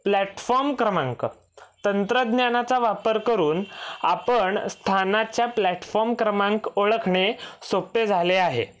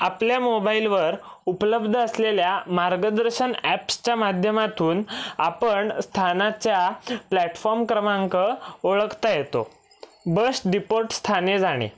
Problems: none marked